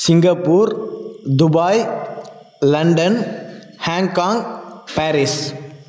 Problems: none marked